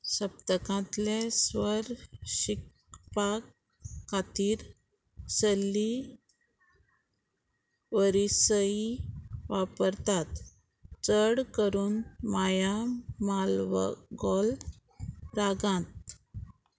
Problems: constant background noise